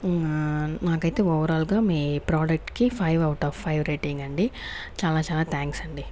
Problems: background sounds at intervals